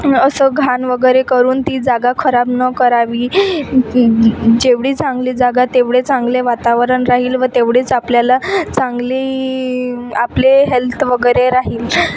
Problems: constant background noise, background conversations at intervals